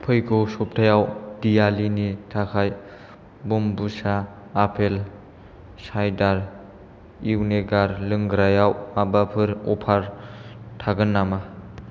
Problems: none marked